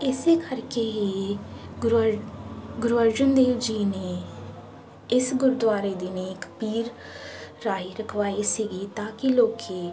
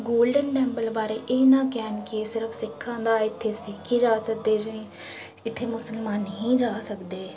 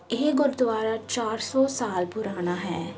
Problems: constant background noise